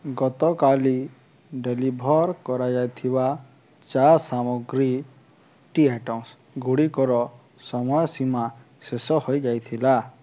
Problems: none marked